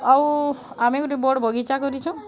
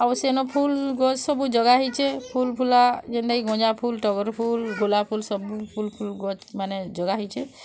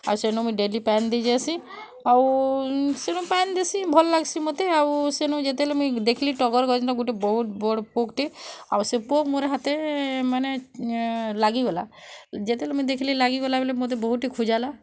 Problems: constant background noise